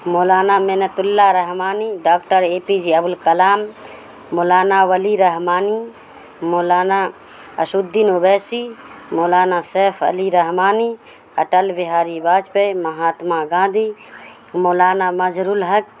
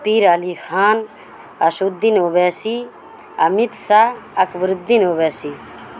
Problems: constant background noise